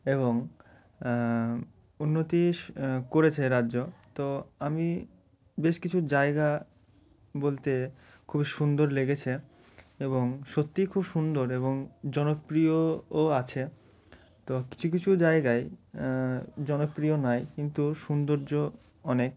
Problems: background sounds at intervals